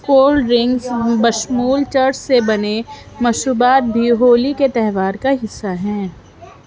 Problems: background sounds at intervals